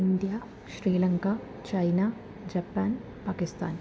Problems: constant background noise, low volume